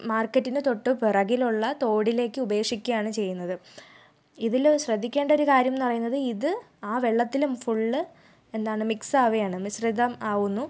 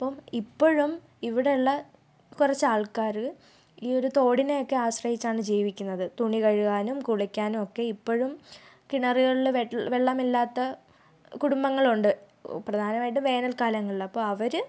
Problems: none marked